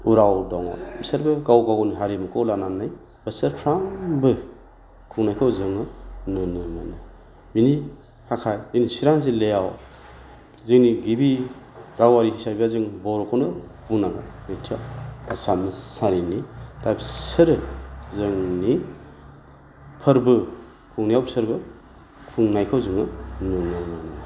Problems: constant background noise